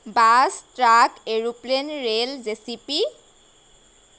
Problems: background sounds at intervals